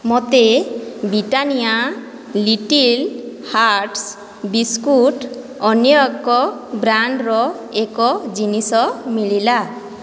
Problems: none marked